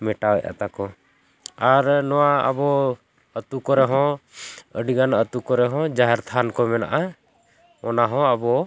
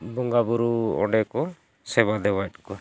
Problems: constant background noise